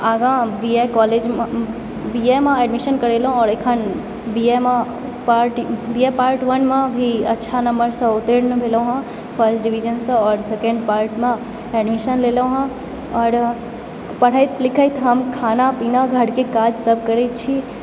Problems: constant background noise